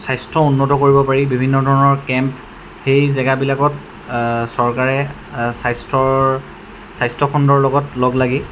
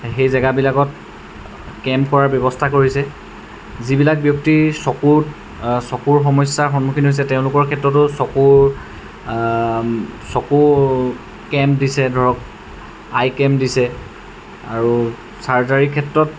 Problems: none marked